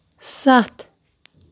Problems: none marked